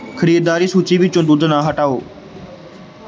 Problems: background sounds at intervals